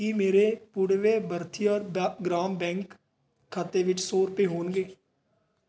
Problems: none marked